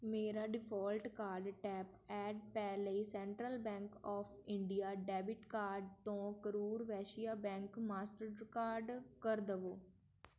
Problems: background conversations at intervals